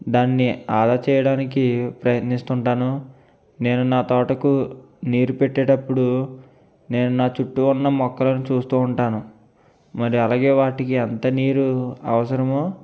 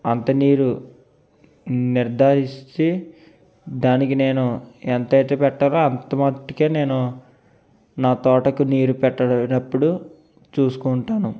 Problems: none marked